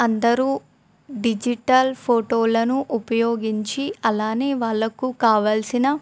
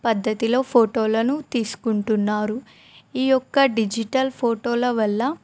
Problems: none marked